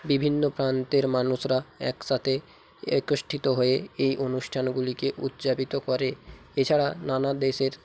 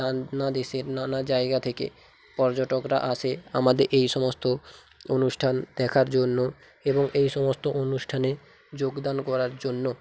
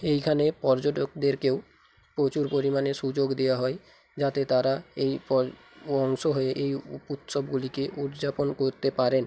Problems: constant background noise